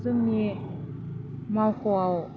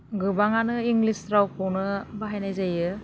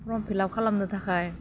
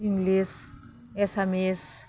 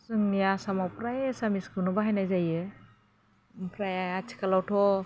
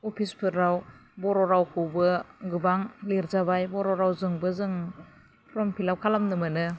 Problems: constant background noise